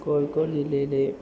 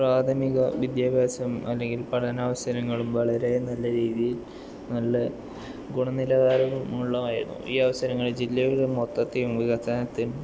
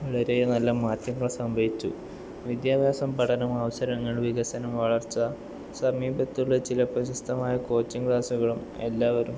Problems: background sounds at intervals, low volume